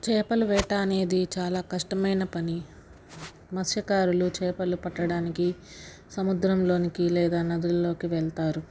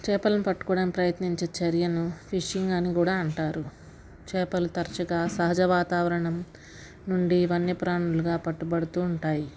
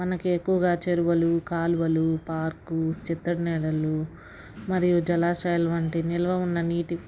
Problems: background sounds at intervals, background conversations at intervals